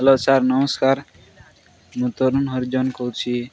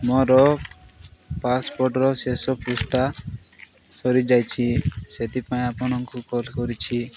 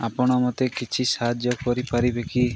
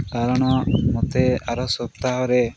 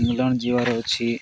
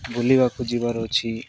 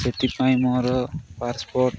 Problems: none marked